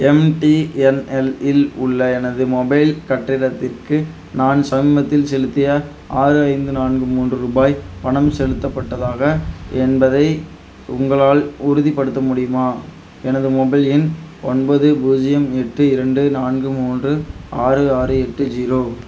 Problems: constant background noise